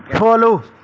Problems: none marked